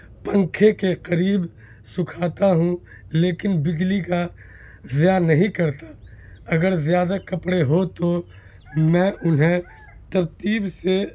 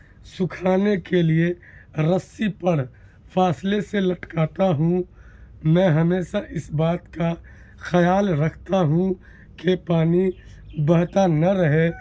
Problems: constant background noise